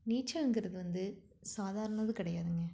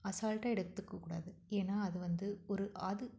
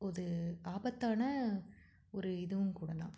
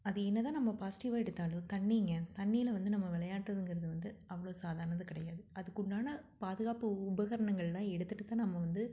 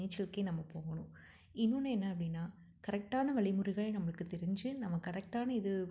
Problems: none marked